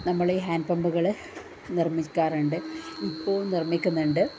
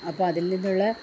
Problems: low volume